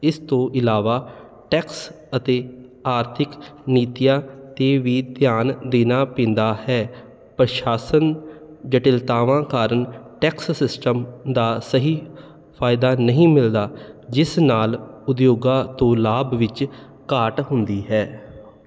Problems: none marked